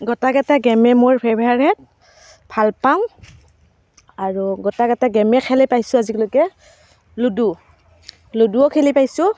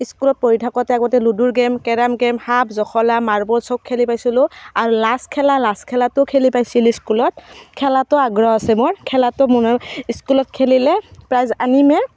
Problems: constant background noise